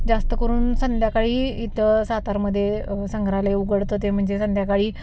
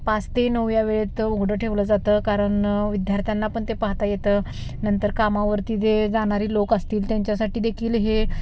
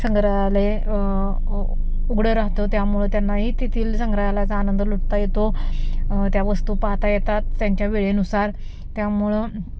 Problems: constant background noise